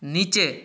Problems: none marked